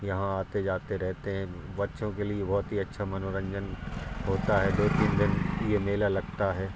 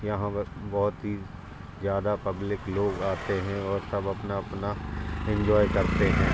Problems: constant background noise